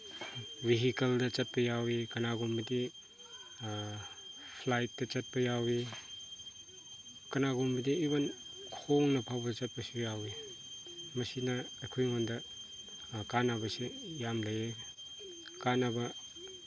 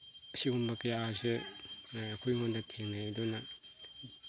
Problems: constant background noise